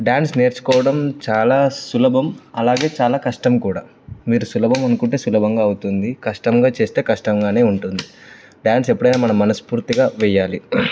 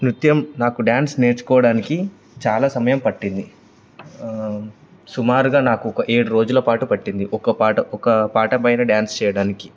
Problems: constant background noise